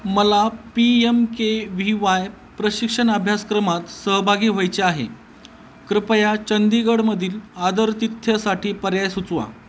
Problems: none marked